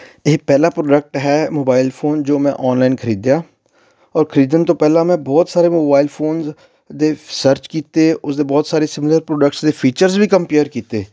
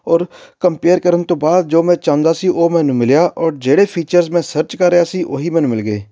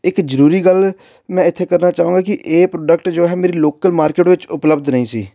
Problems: none marked